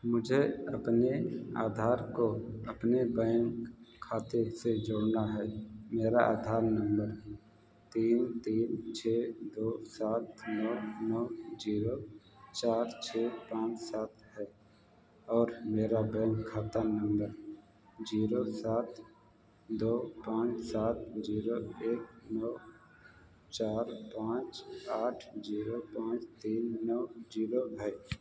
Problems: background sounds at intervals, echo, low volume